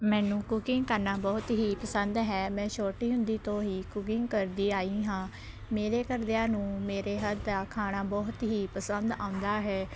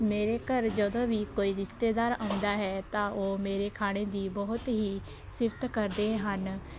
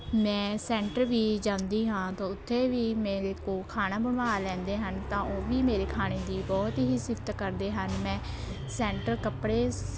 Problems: none marked